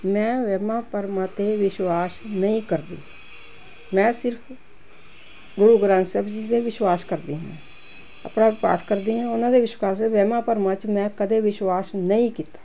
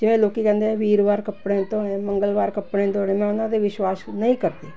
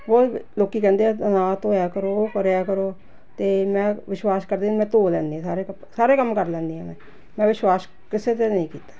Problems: constant background noise